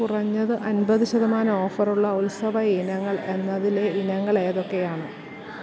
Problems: constant background noise